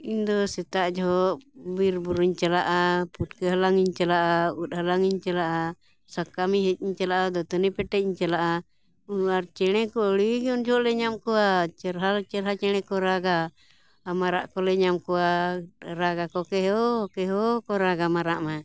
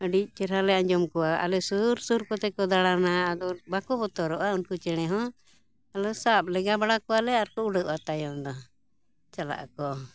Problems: background sounds at intervals